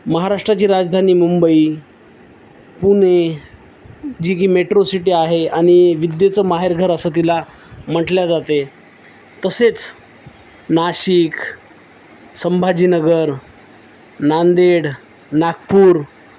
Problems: none marked